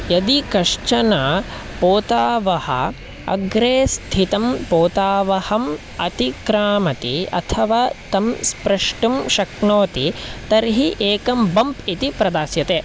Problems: constant background noise